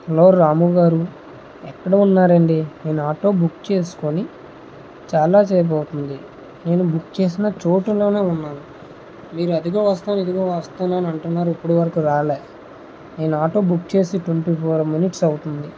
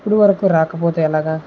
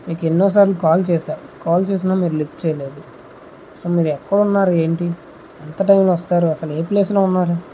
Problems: constant background noise